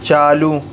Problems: constant background noise